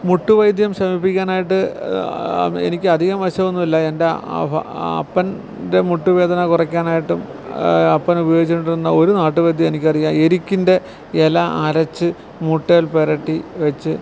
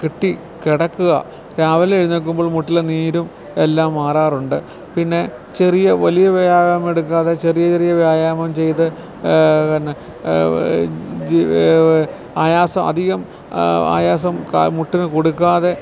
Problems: constant background noise